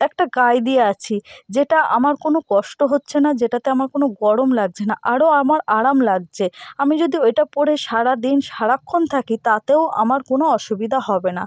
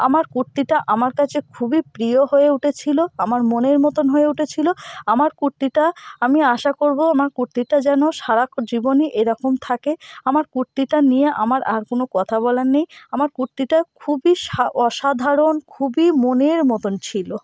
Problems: constant background noise